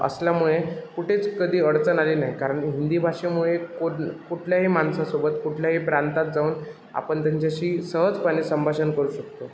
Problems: constant background noise